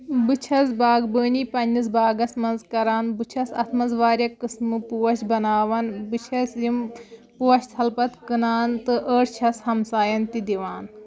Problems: background sounds at intervals